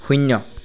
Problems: background sounds at intervals